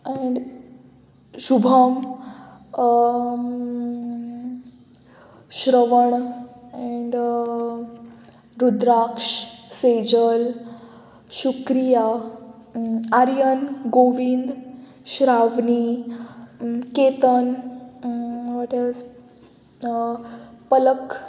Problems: none marked